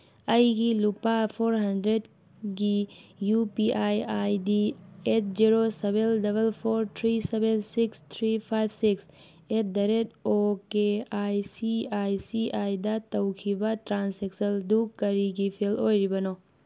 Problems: background sounds at intervals